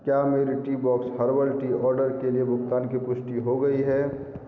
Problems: constant background noise, low volume